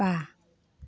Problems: none marked